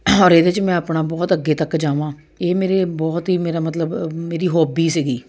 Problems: constant background noise